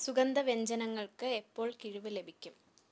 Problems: none marked